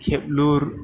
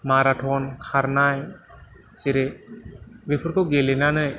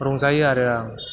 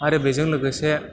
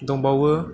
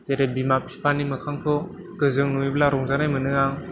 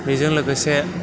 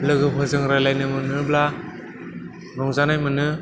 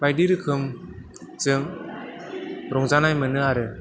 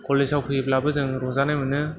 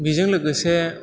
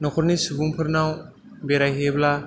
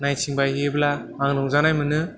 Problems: background sounds at intervals